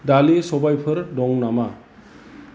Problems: background conversations at intervals